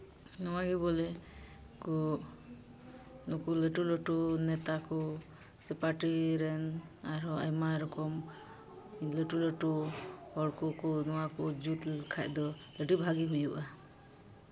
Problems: constant background noise